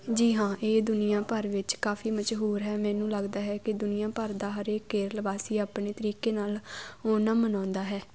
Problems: constant background noise